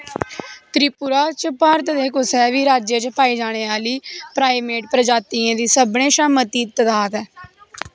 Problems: background sounds at intervals